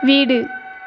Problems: constant background noise